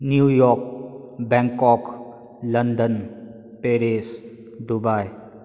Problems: echo